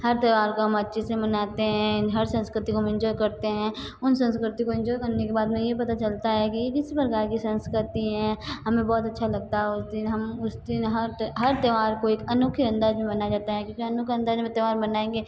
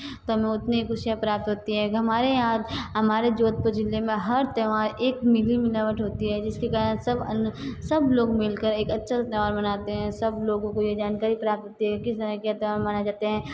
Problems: constant background noise